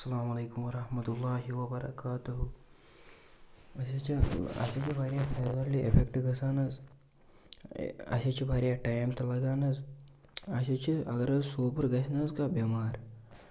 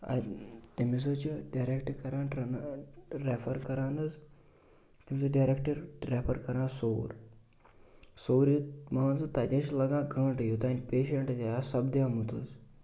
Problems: constant background noise